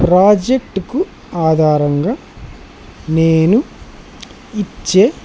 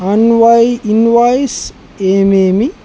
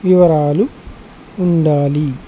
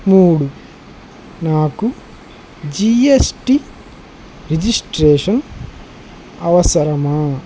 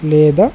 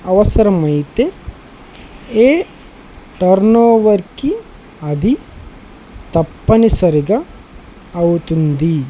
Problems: constant background noise